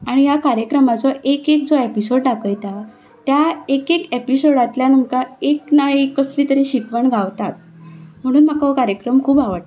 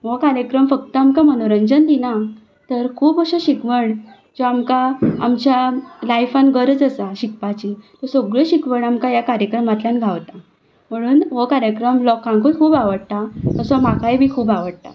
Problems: constant background noise